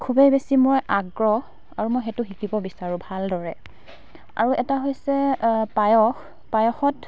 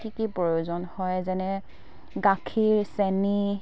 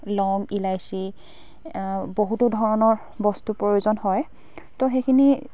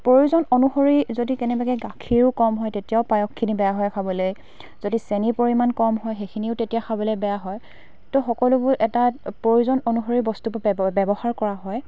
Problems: constant background noise, background conversations at intervals